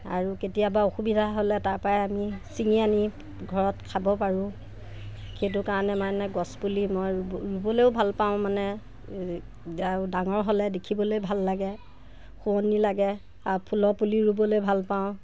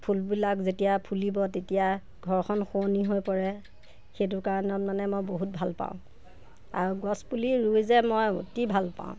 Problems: none marked